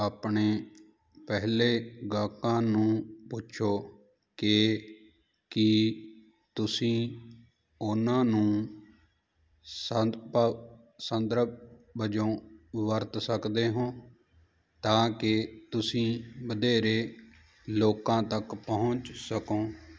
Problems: none marked